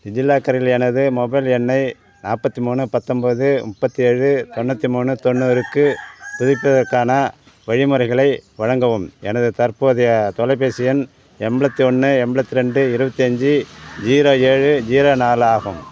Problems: none marked